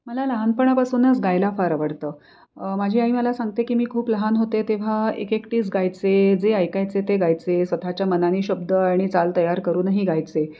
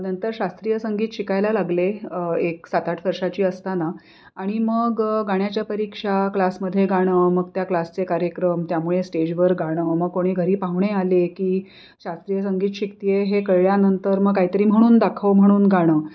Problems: none marked